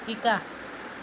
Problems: constant background noise